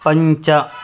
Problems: background sounds at intervals